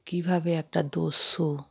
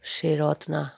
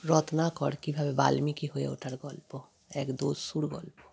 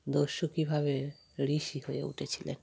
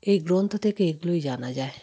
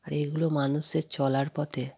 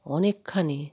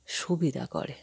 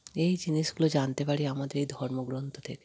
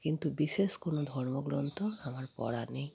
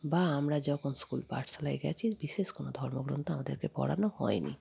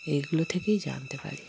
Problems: background sounds at intervals